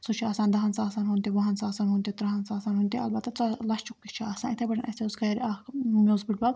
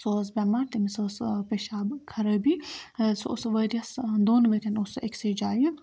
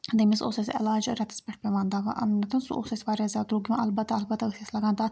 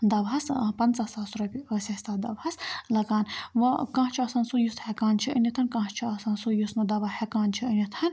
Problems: background sounds at intervals